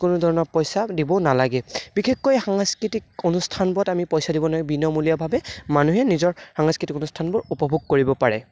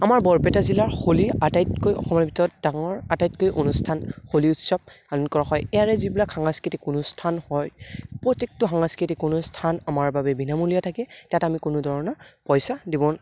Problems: background conversations at intervals